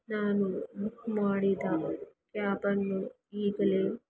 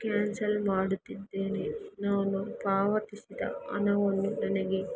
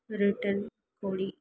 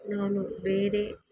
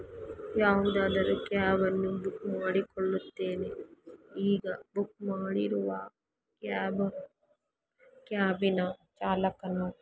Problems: background sounds at intervals